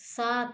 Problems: none marked